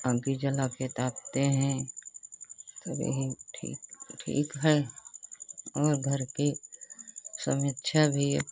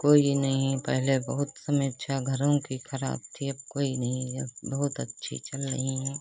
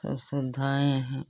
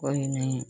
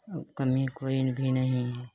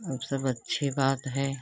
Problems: constant background noise